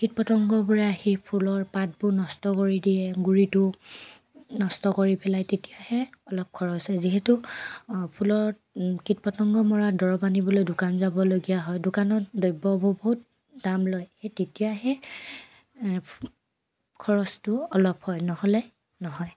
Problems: constant background noise